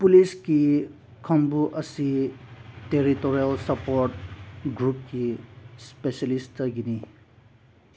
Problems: none marked